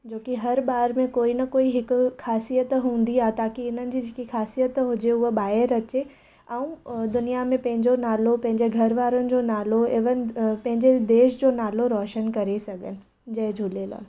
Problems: none marked